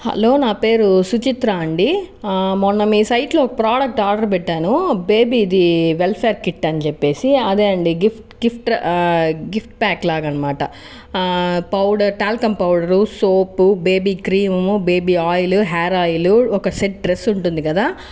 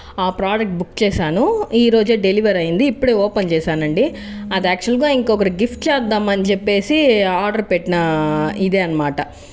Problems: background sounds at intervals